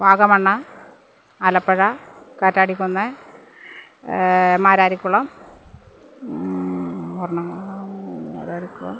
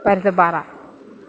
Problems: none marked